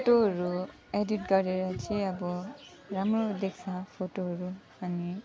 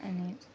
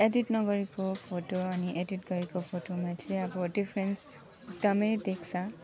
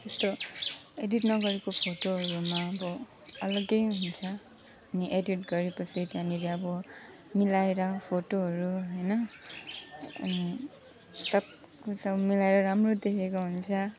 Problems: background sounds at intervals